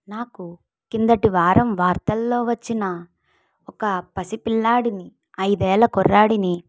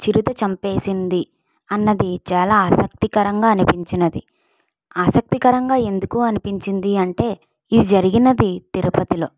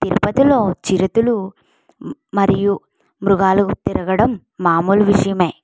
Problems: none marked